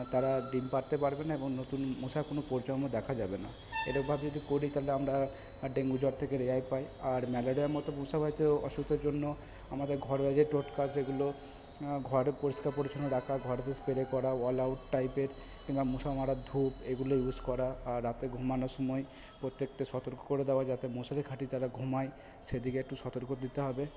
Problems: constant background noise